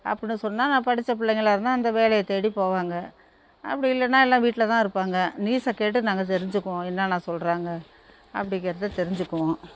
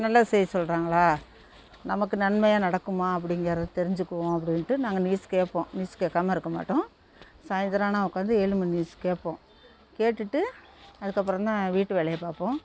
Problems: constant background noise